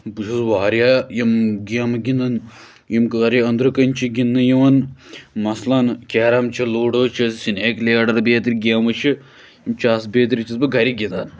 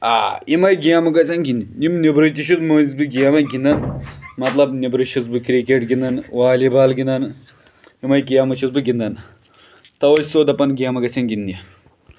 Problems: background sounds at intervals